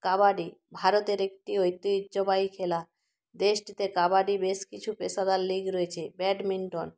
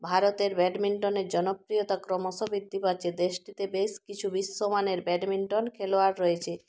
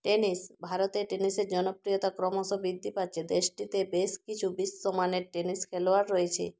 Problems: constant background noise